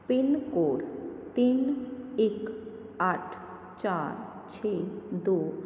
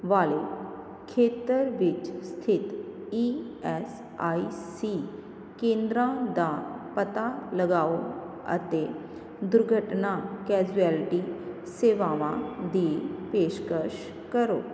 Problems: none marked